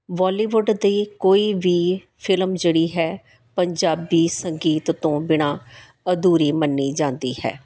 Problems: none marked